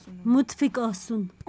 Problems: background conversations at intervals